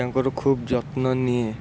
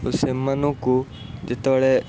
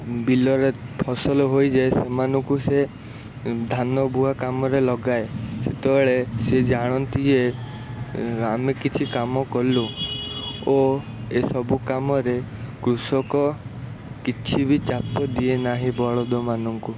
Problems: constant background noise